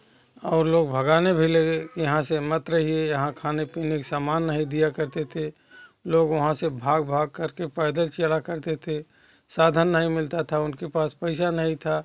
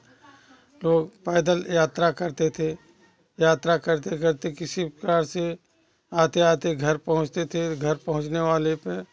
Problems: constant background noise, continuous background conversations